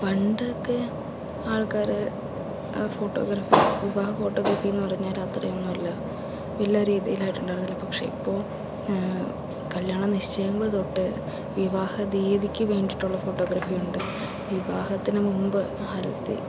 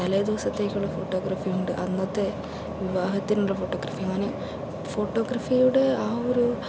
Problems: constant background noise, low volume